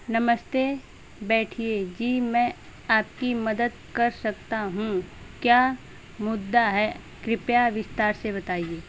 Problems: none marked